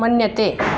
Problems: constant background noise